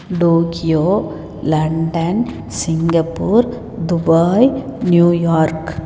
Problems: echo